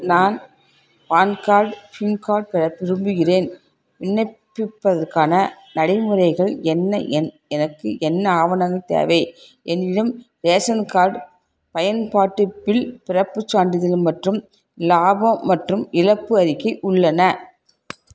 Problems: constant background noise